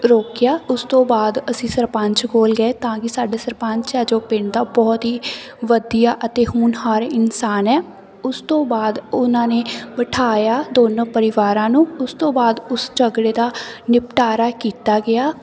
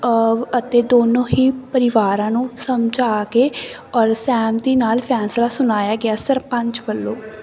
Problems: constant background noise